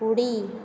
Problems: constant background noise